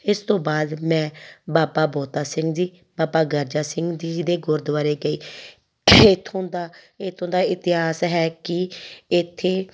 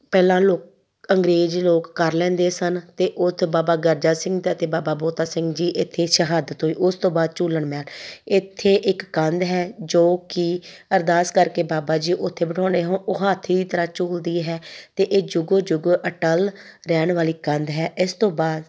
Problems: background sounds at intervals